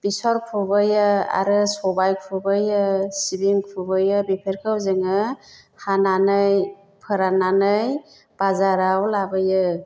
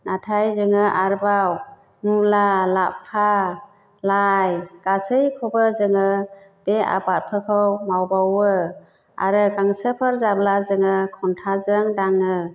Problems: background conversations at intervals